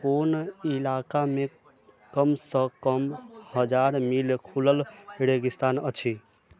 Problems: none marked